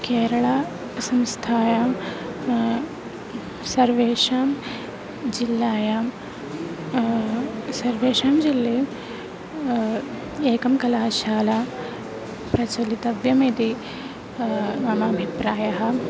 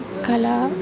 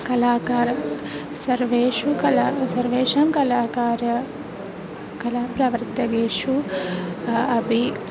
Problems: none marked